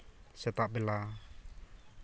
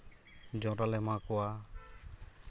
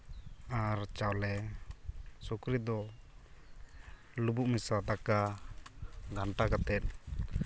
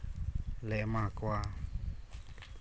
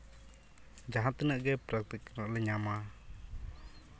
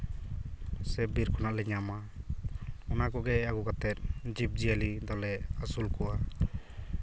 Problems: constant background noise